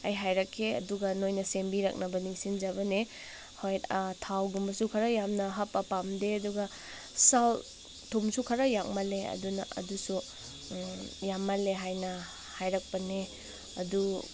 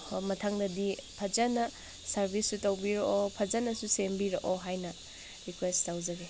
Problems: background sounds at intervals